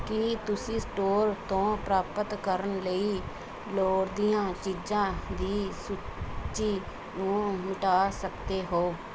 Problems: background conversations at intervals